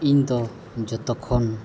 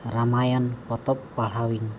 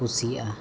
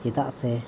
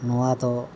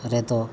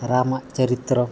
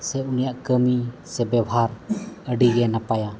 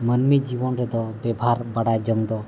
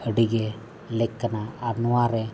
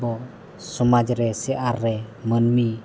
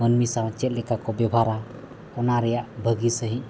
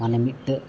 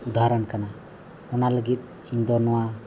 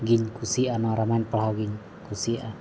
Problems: constant background noise